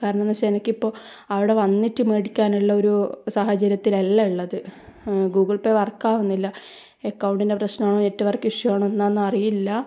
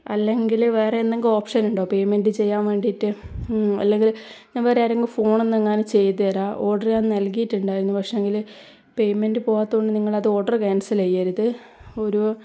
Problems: none marked